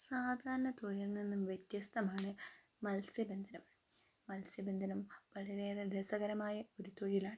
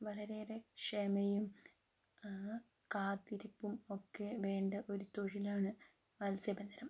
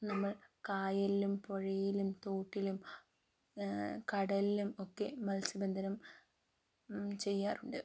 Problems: low volume